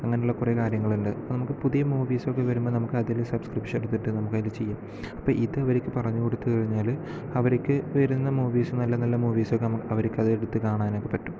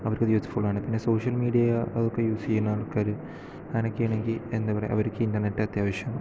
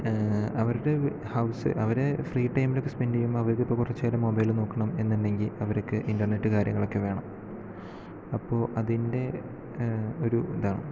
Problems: low volume